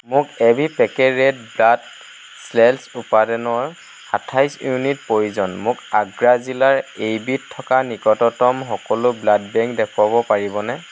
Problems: constant background noise